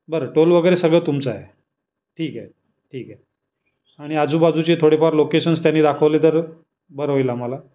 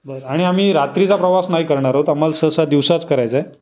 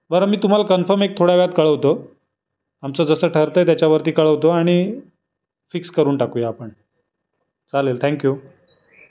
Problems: constant background noise, background conversations at intervals